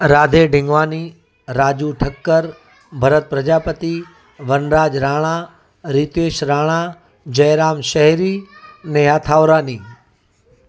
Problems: constant background noise